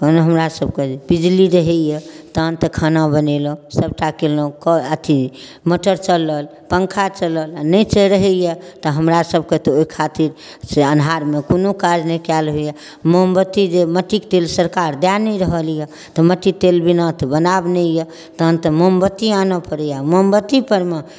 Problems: none marked